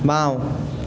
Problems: constant background noise